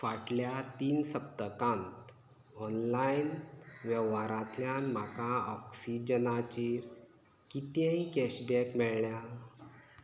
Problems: low volume